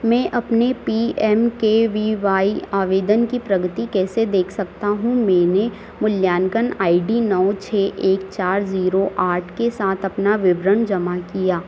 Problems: constant background noise